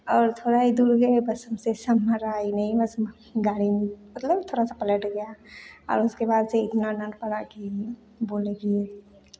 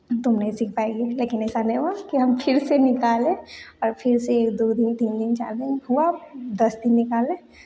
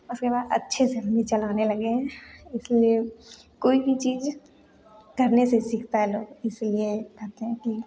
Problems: none marked